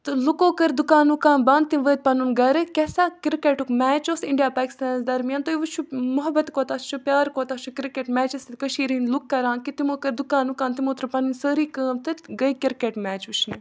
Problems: background sounds at intervals